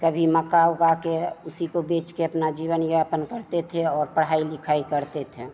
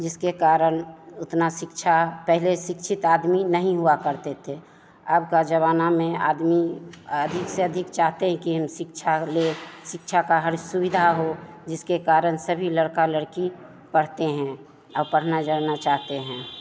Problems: constant background noise, continuous background conversations